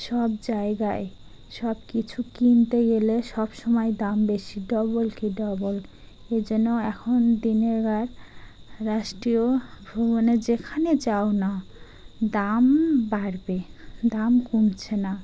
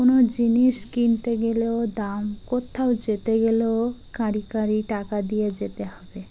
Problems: constant background noise